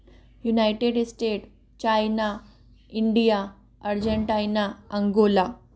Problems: background sounds at intervals